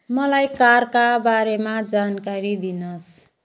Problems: background sounds at intervals